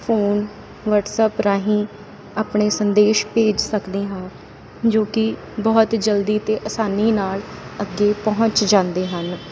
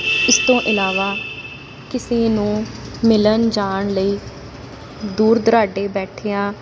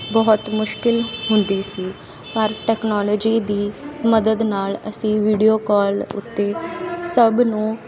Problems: constant background noise